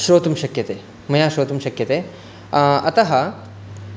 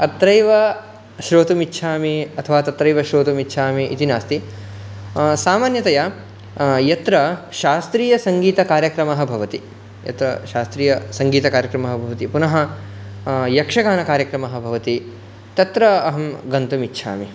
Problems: background sounds at intervals